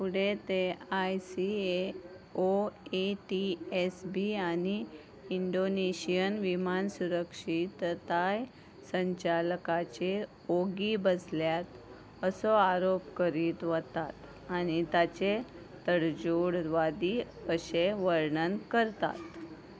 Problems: none marked